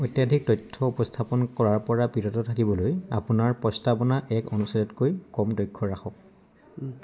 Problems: background sounds at intervals, background conversations at intervals